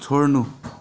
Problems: continuous background conversations